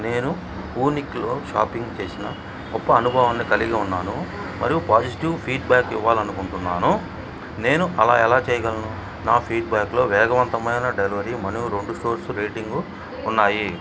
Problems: background sounds at intervals, background conversations at intervals